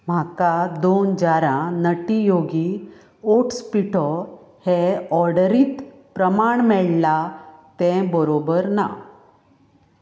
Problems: background sounds at intervals, background conversations at intervals